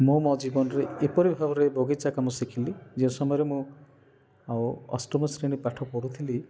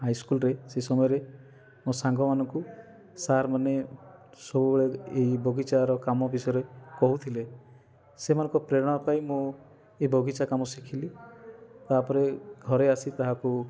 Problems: none marked